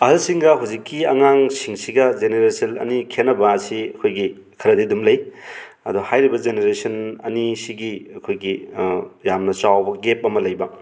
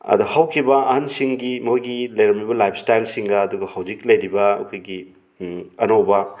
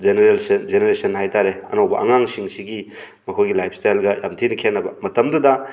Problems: background sounds at intervals